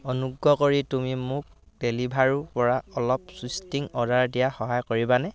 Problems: background conversations at intervals